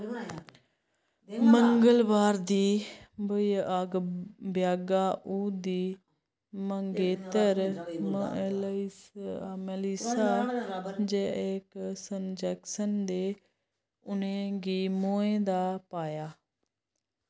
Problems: background sounds at intervals